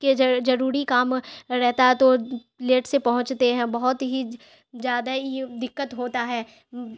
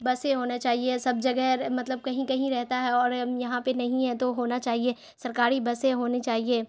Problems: none marked